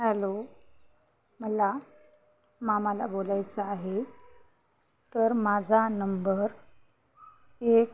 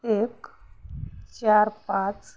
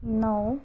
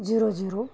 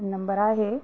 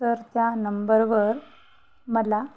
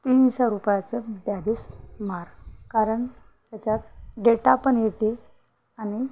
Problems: constant background noise